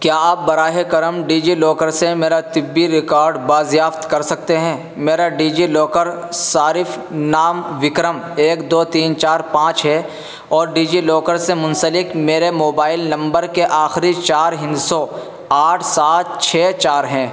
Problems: constant background noise